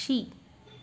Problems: constant background noise